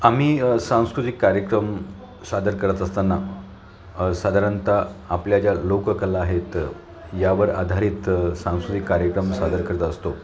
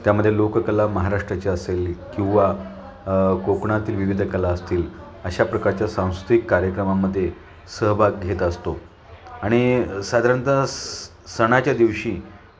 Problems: none marked